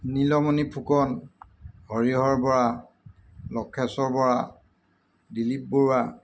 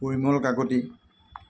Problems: none marked